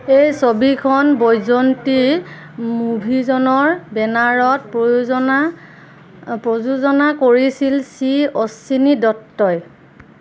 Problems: none marked